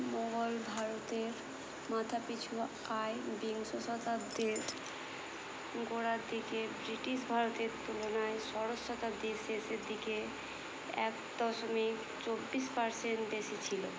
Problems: constant background noise